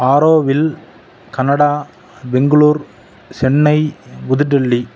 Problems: constant background noise